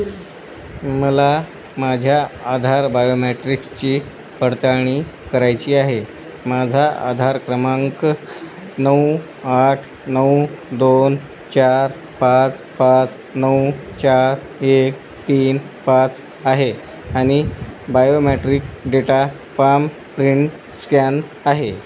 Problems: constant background noise